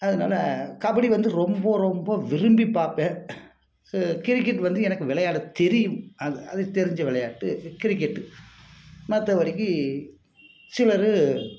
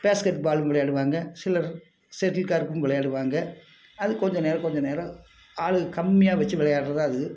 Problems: constant background noise